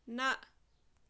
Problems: background sounds at intervals